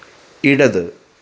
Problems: constant background noise